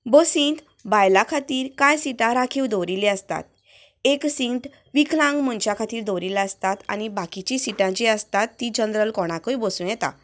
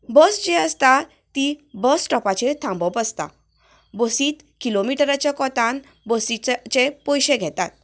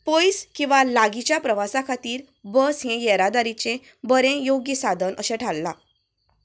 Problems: none marked